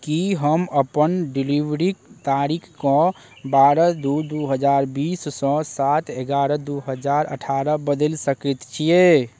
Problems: none marked